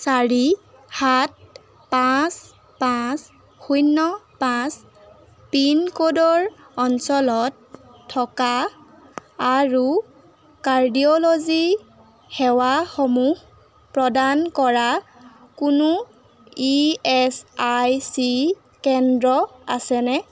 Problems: background sounds at intervals